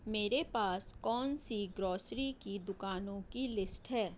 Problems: none marked